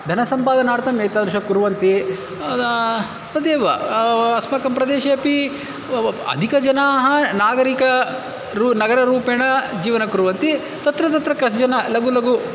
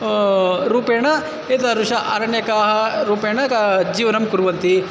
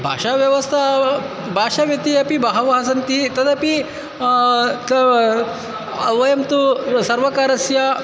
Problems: constant background noise, background conversations at intervals